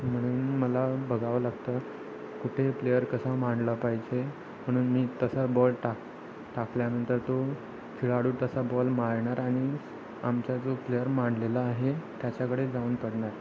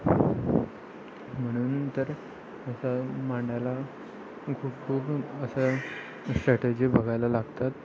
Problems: constant background noise, continuous background conversations